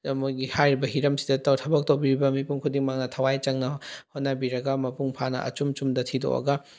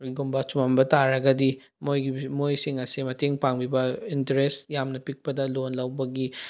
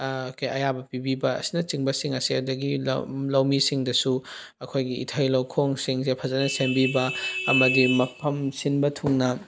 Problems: none marked